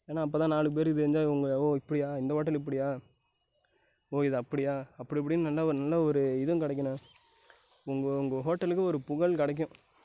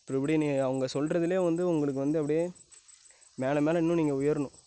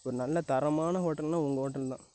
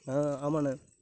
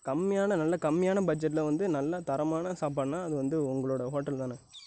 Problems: none marked